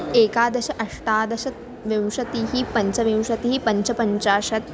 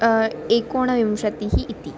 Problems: constant background noise, background conversations at intervals